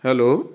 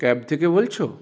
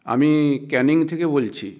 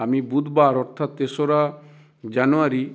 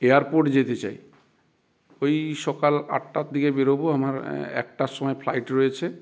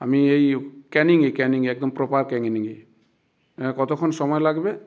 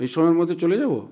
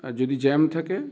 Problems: background sounds at intervals